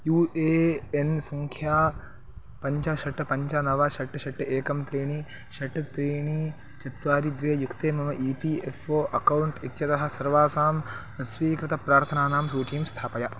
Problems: background sounds at intervals